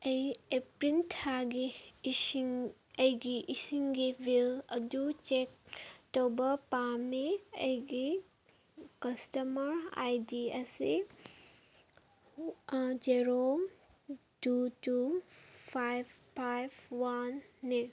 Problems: background sounds at intervals, background conversations at intervals